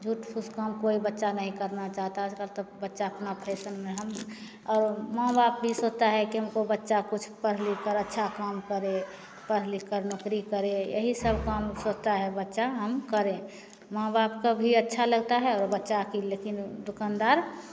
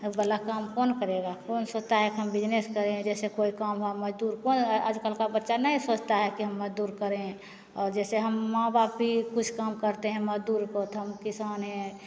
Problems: none marked